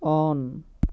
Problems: none marked